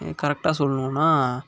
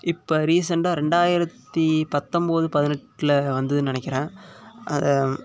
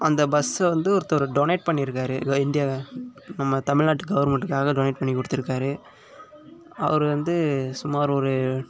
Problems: constant background noise